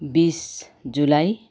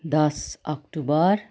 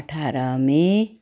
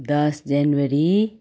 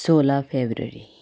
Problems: background sounds at intervals